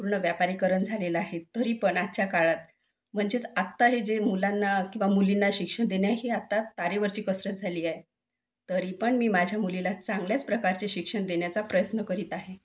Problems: none marked